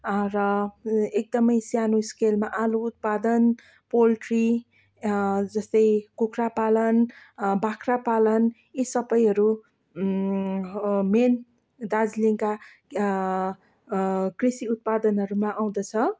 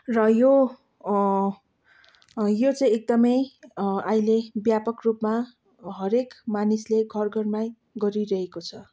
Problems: none marked